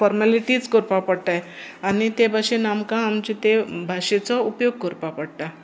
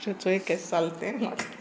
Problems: constant background noise